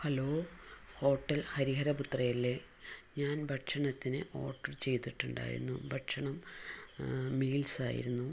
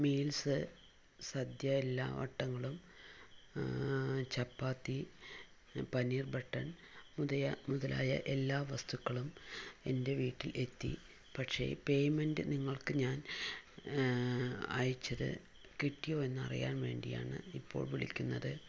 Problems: low volume